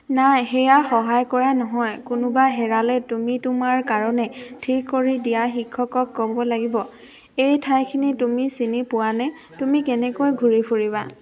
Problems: constant background noise